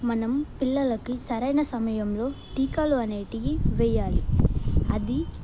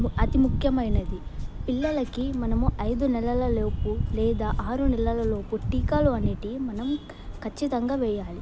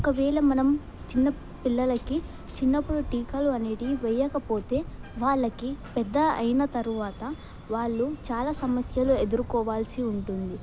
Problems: background sounds at intervals